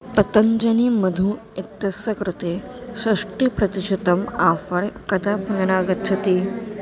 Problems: constant background noise, continuous background conversations